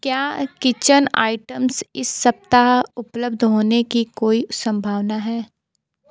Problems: continuous background conversations